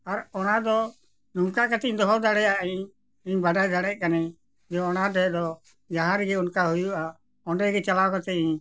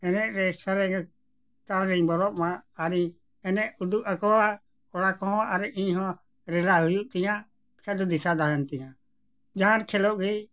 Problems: none marked